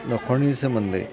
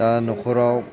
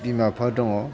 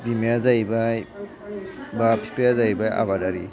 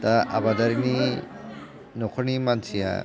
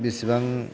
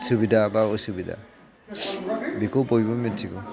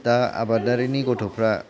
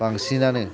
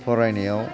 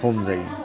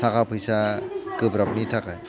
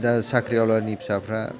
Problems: background conversations at intervals, low volume